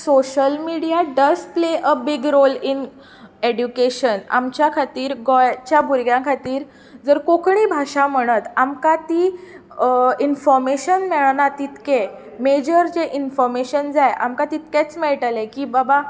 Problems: constant background noise, continuous background conversations